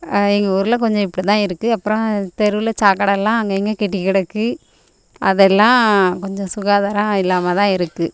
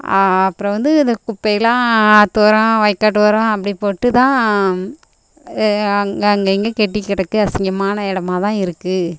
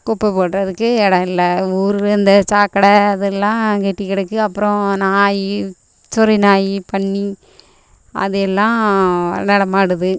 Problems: none marked